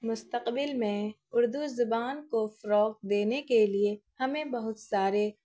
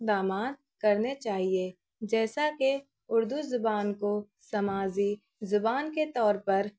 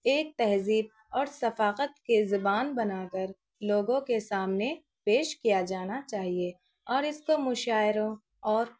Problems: none marked